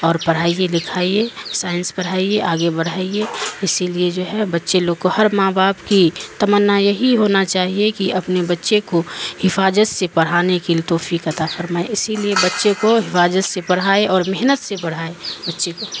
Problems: constant background noise